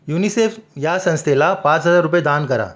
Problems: background sounds at intervals